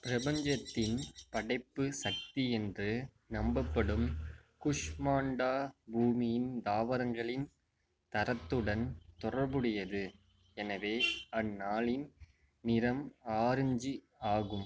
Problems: background sounds at intervals